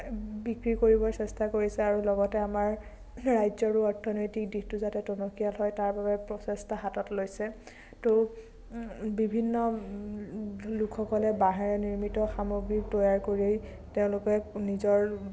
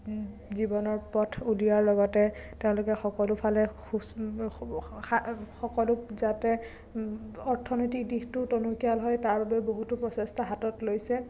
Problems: constant background noise, low volume